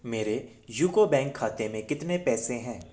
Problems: background sounds at intervals